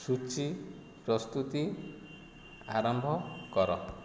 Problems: none marked